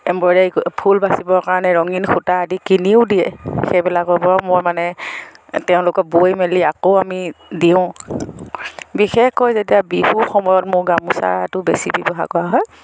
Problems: none marked